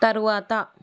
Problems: constant background noise